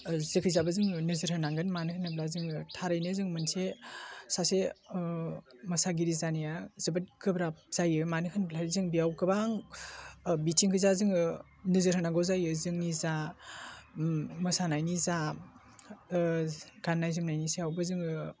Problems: low volume